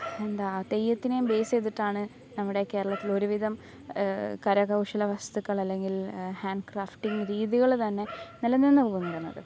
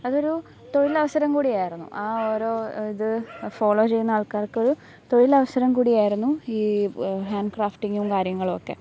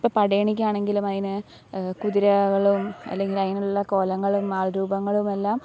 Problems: background sounds at intervals